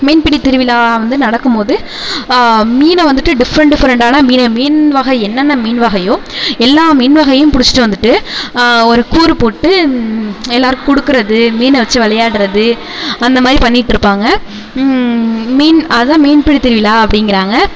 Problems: constant background noise, low volume